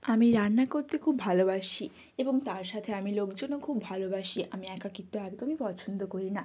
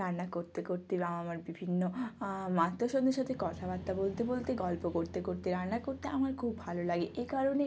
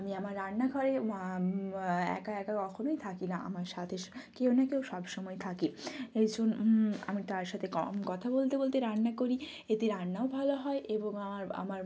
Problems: constant background noise